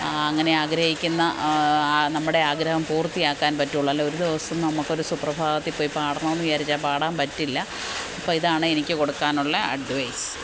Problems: constant background noise